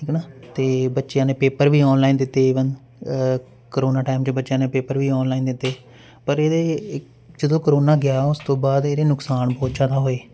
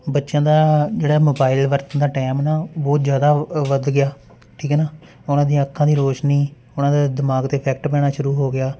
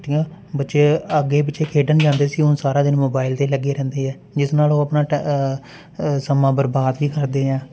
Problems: constant background noise